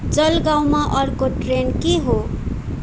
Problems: constant background noise